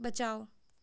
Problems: none marked